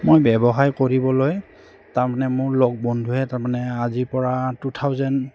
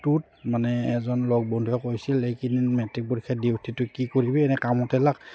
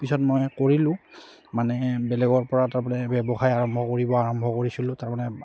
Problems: constant background noise